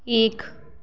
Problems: constant background noise, echo